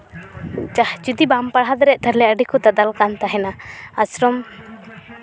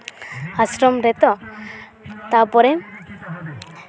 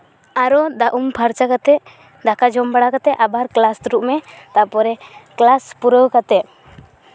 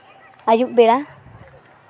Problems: background conversations at intervals